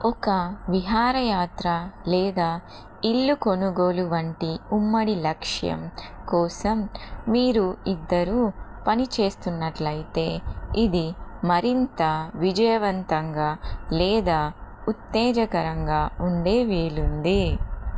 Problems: constant background noise